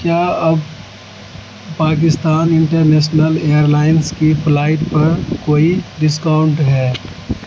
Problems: constant background noise